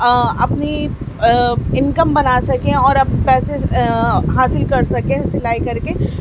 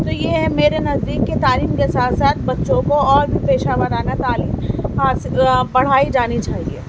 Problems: constant background noise